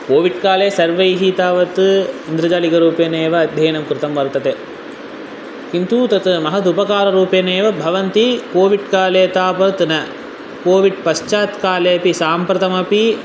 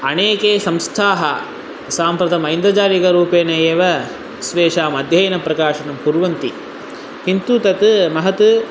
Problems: constant background noise